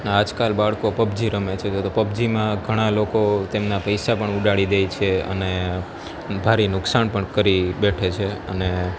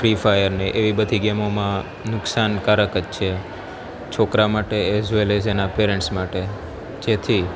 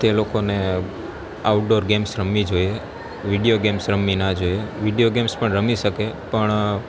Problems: constant background noise